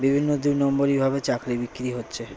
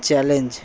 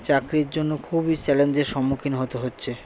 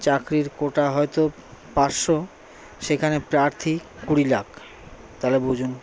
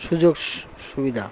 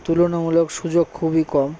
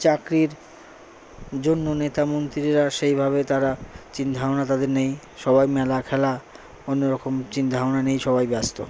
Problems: constant background noise, background conversations at intervals